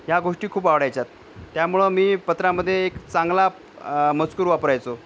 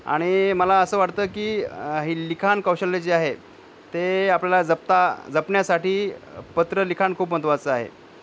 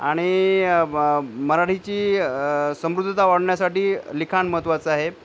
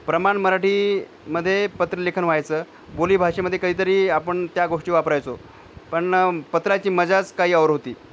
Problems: background sounds at intervals